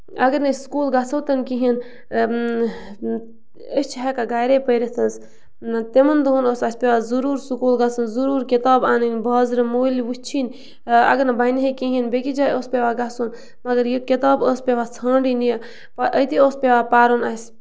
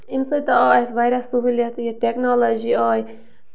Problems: background sounds at intervals